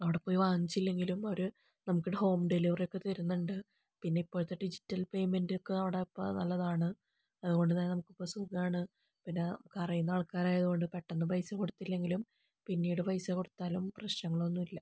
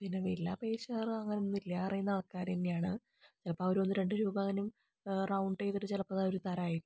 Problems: low volume